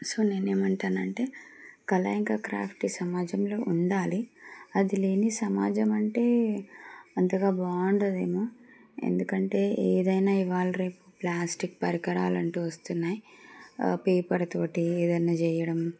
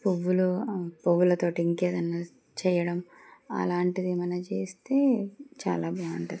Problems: none marked